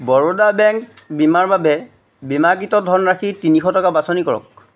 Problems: background sounds at intervals